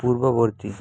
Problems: constant background noise